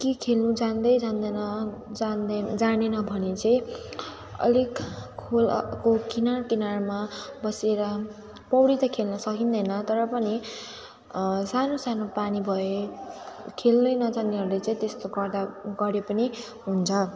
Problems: continuous background conversations